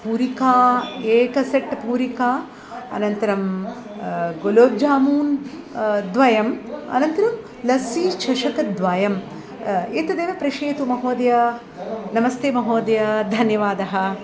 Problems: constant background noise